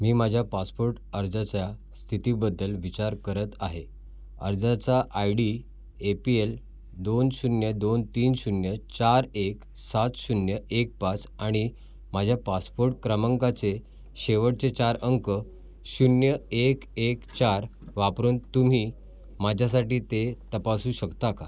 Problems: background sounds at intervals, background conversations at intervals